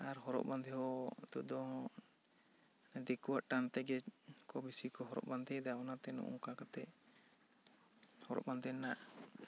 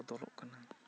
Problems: none marked